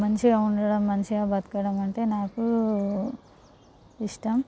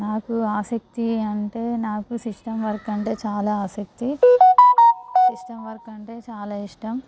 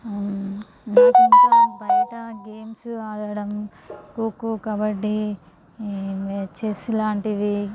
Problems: none marked